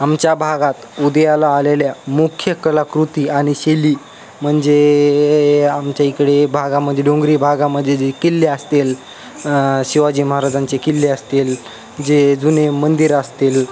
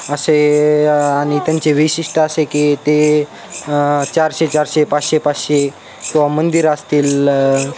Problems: constant background noise, background conversations at intervals